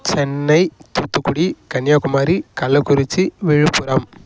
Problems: none marked